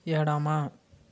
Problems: constant background noise